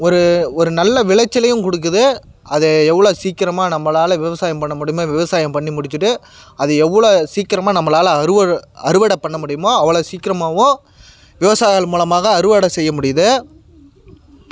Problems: background sounds at intervals